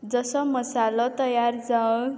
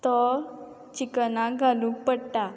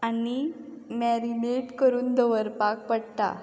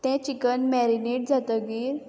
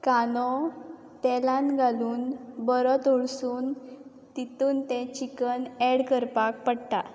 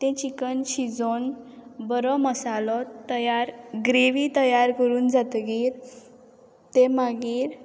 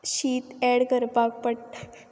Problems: background sounds at intervals